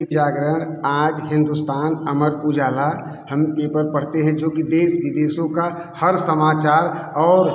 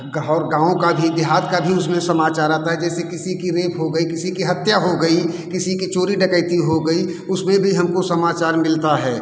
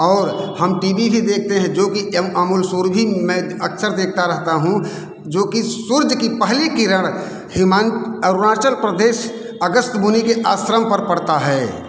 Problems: background sounds at intervals, background conversations at intervals